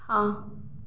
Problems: none marked